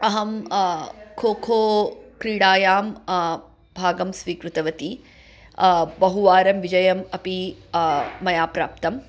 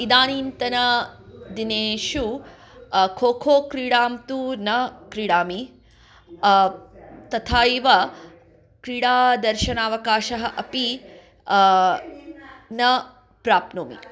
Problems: background conversations at intervals